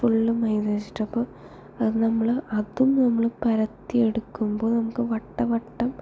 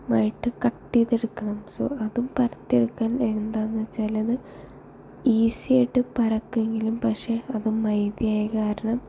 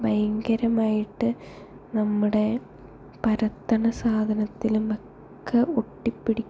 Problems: low volume